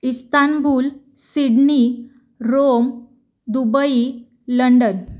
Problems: none marked